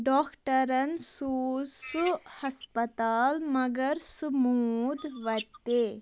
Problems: constant background noise